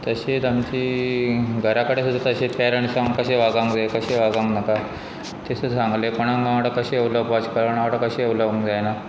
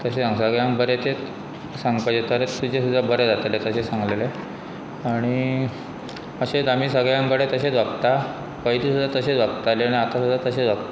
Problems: constant background noise